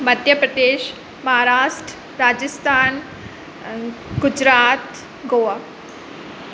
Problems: constant background noise